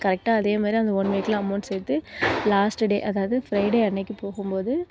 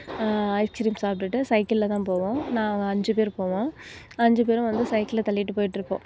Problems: constant background noise